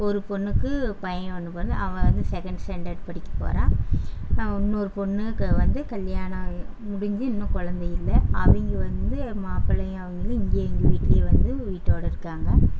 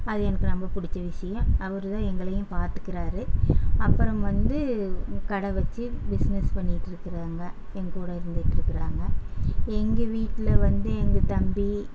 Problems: constant background noise